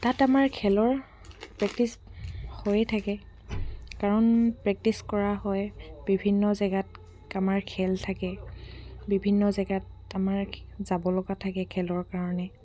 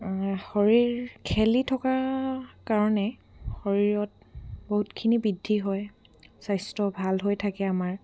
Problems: background sounds at intervals